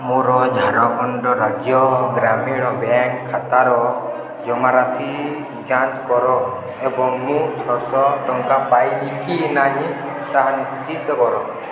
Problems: constant background noise, continuous background conversations